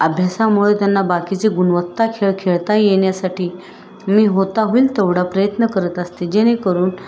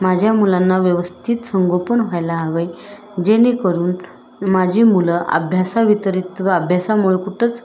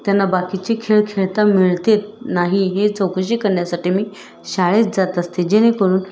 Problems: constant background noise, background conversations at intervals